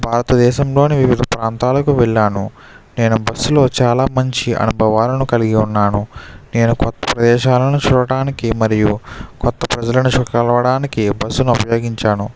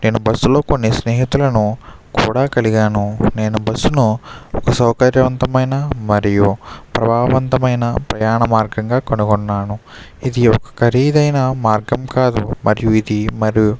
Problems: constant background noise